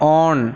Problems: constant background noise